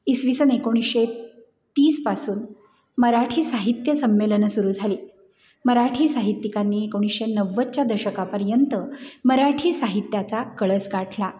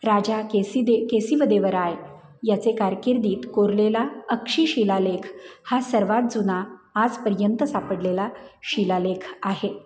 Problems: none marked